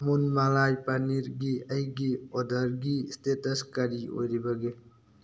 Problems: none marked